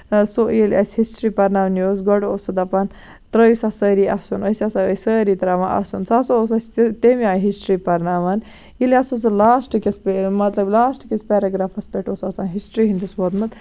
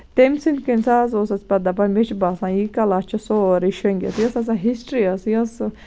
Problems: constant background noise